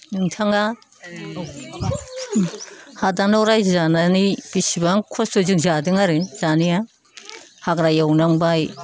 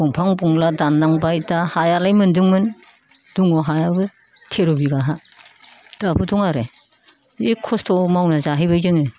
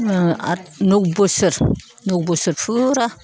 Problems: none marked